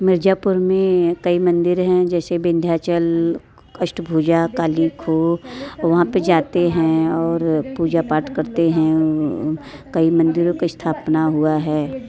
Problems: constant background noise, continuous background conversations